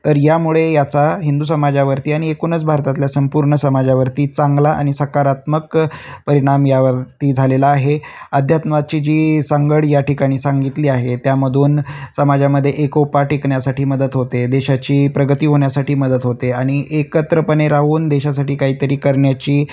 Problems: none marked